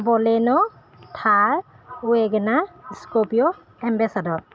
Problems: none marked